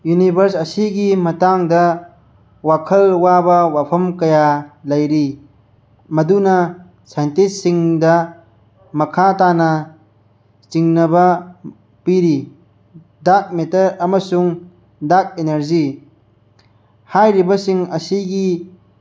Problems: none marked